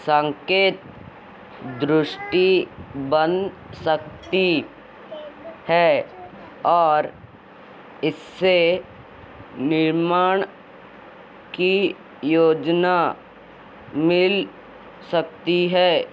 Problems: constant background noise